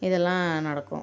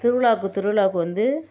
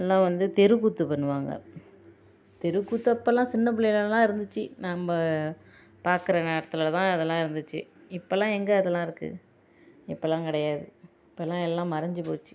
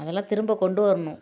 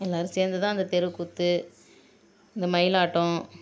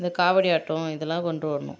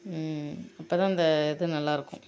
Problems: constant background noise